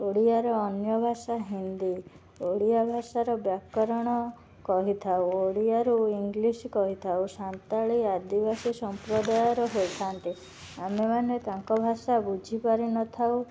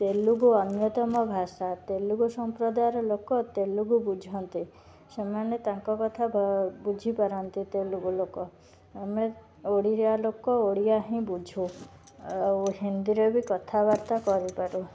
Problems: background sounds at intervals